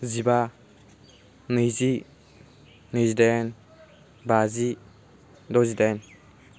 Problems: constant background noise